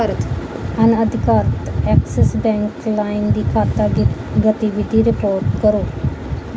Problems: background sounds at intervals